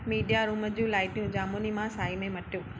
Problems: constant background noise